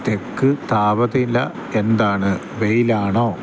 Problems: constant background noise